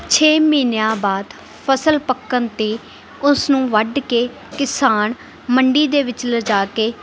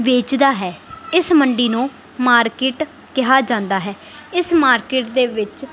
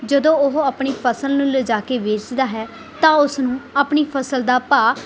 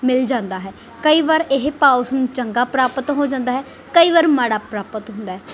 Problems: background sounds at intervals